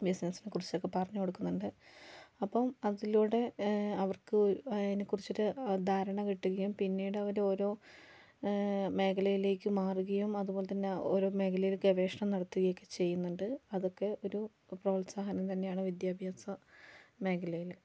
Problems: low volume